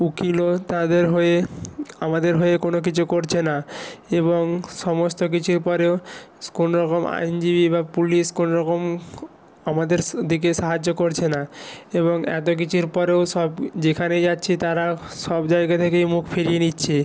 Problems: background sounds at intervals